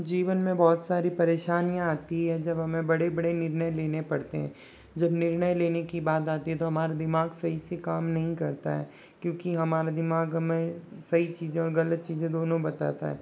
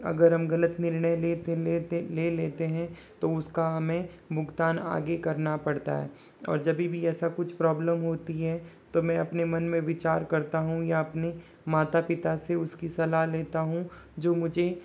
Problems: none marked